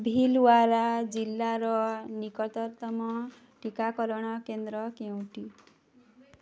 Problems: low volume